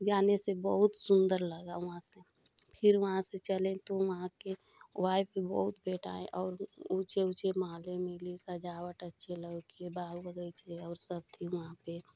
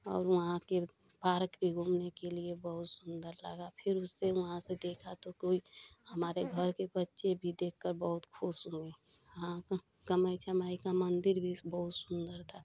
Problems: constant background noise